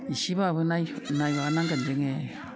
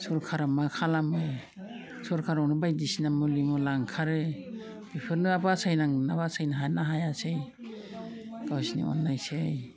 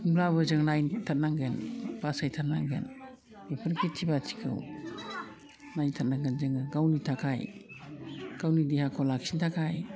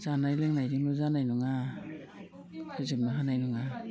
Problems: low volume